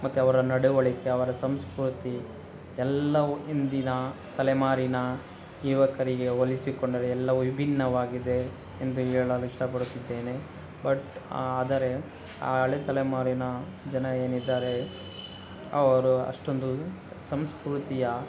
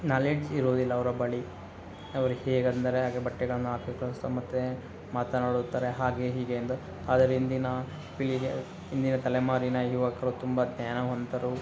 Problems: constant background noise